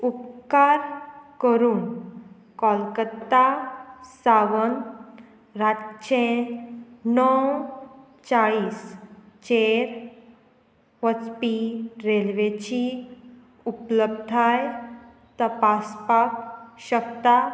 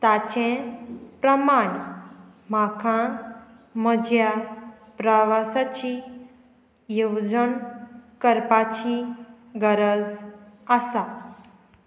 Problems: none marked